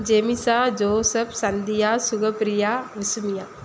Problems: constant background noise